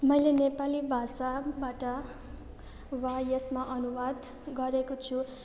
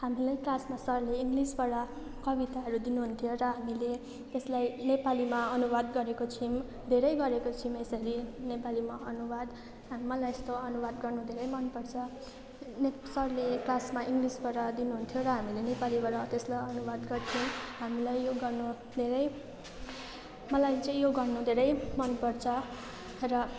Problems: constant background noise